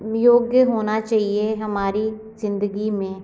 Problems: constant background noise